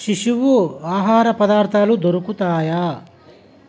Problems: constant background noise